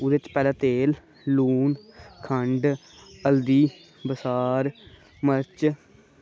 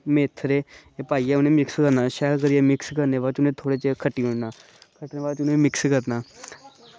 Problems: constant background noise